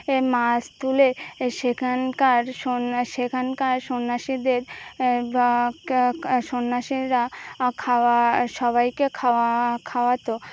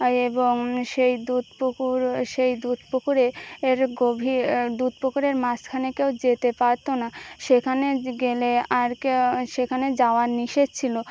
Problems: constant background noise, background conversations at intervals